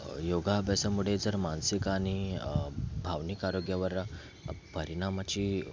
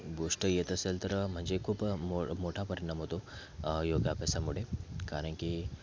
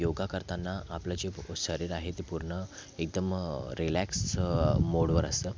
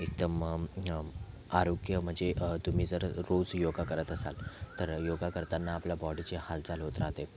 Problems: constant background noise, continuous background conversations